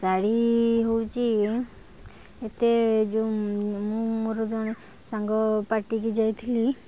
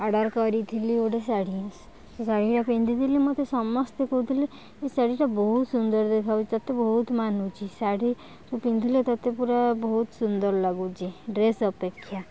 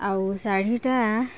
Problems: background sounds at intervals, background conversations at intervals